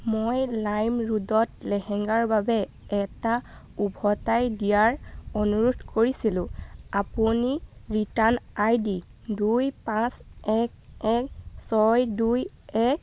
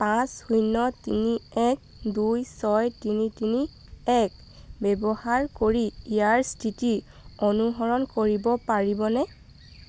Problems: constant background noise